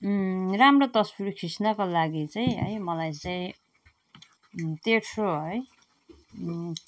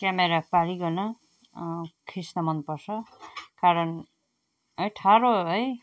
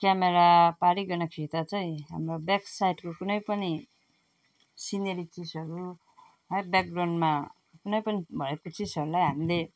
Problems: none marked